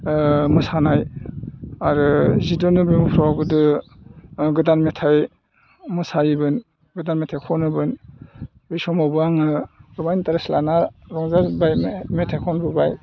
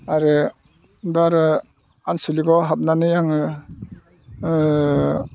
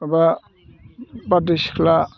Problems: low volume